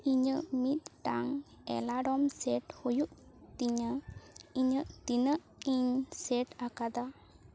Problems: background sounds at intervals